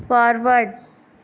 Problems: constant background noise